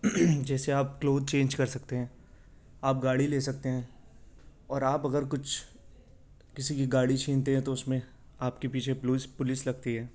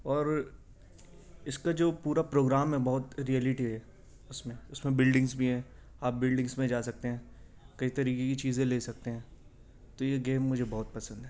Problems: none marked